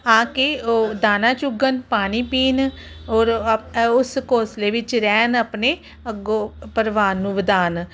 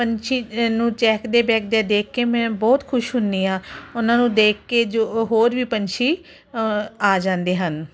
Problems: background conversations at intervals